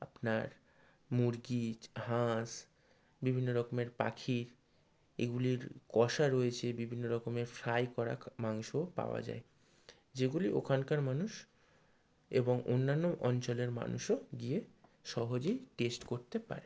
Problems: low volume